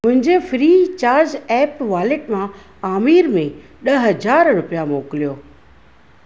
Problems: constant background noise